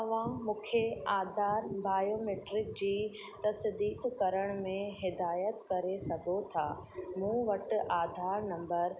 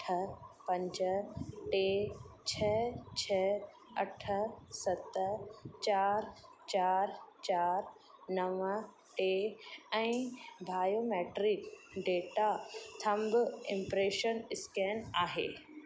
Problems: constant background noise